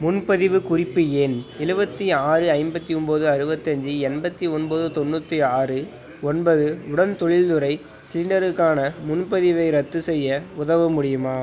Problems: constant background noise